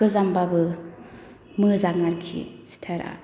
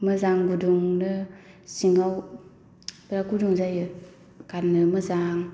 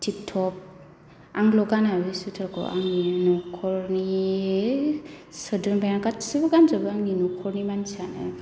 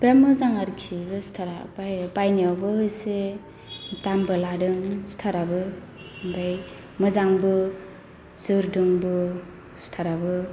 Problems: none marked